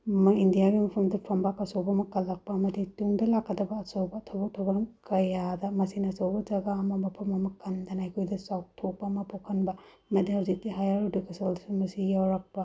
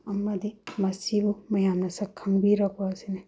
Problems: none marked